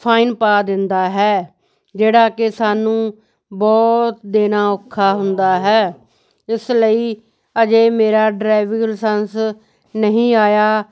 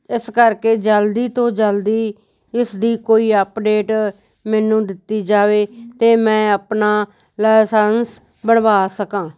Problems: none marked